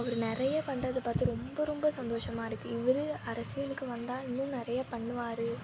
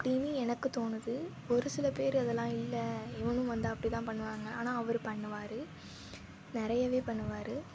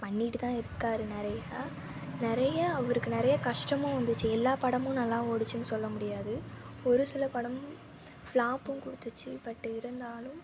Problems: constant background noise